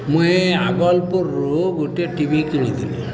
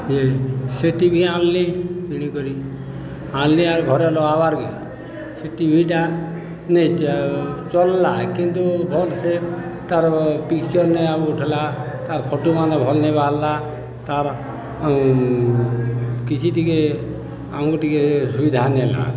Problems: constant background noise, continuous background conversations